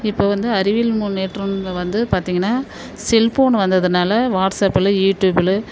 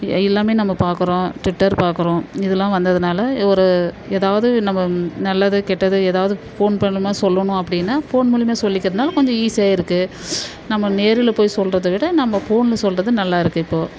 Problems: constant background noise